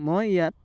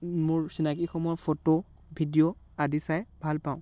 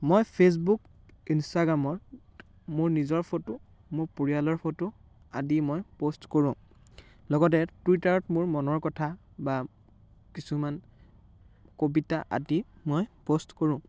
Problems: background sounds at intervals, background conversations at intervals